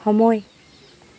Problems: constant background noise